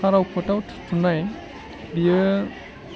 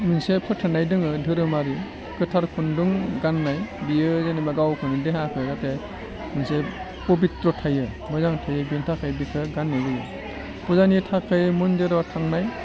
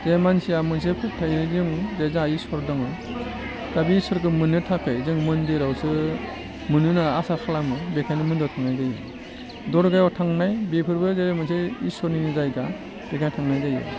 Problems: low volume